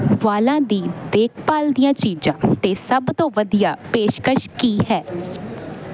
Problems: constant background noise